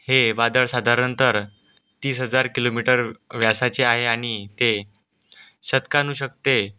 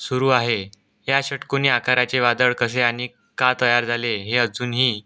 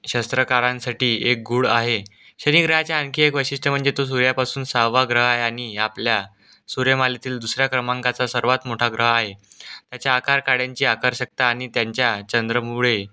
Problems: background sounds at intervals